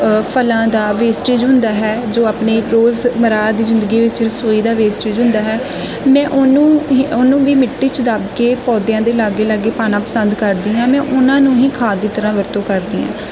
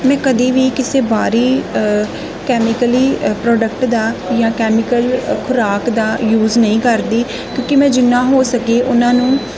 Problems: constant background noise